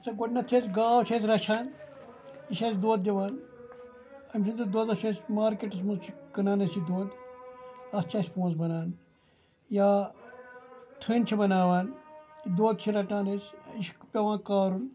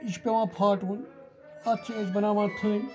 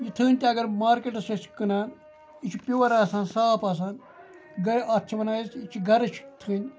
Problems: background sounds at intervals, background conversations at intervals